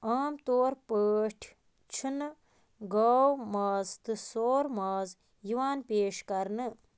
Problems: constant background noise